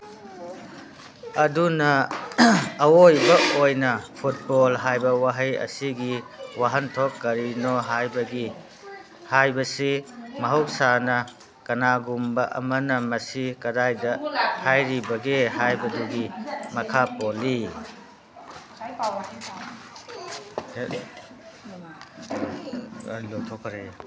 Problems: background sounds at intervals, background conversations at intervals